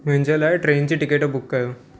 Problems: constant background noise, echo